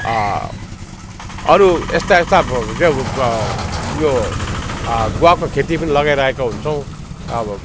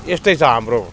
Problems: constant background noise, continuous background conversations